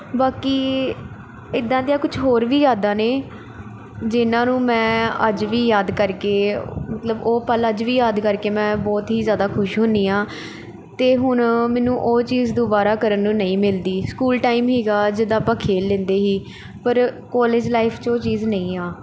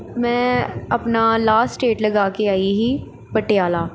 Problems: constant background noise